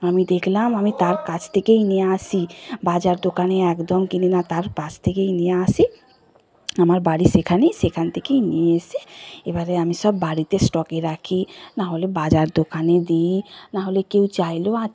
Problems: constant background noise, continuous background conversations